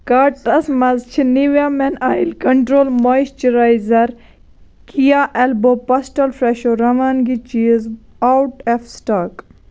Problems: constant background noise